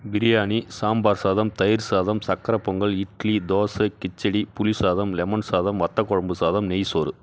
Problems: none marked